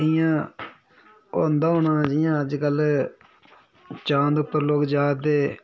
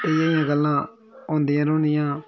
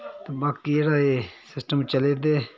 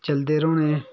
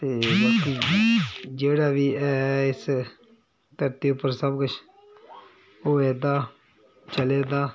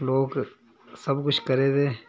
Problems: background sounds at intervals